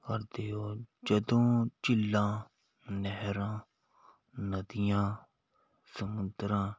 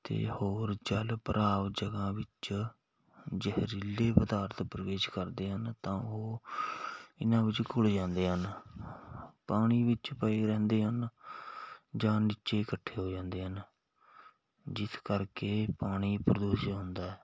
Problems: background sounds at intervals